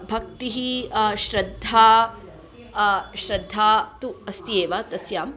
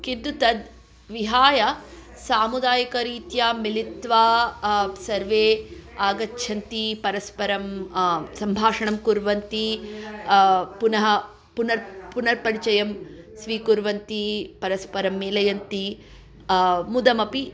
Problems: continuous background conversations